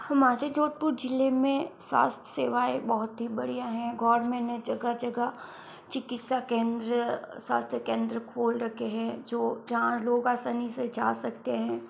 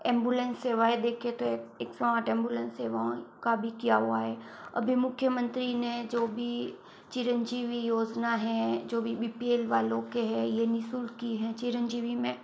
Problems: background sounds at intervals, low volume